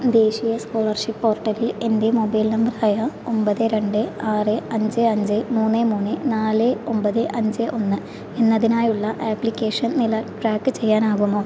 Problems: constant background noise